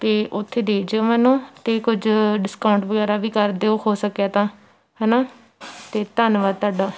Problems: none marked